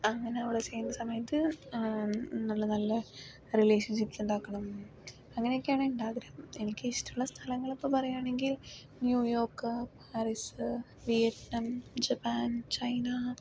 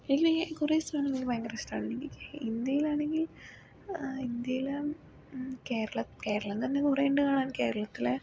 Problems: low volume